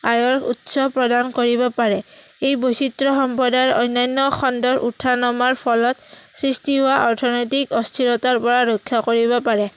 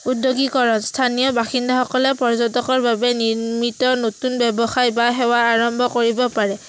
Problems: constant background noise